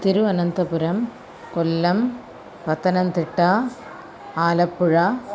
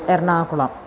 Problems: constant background noise, continuous background conversations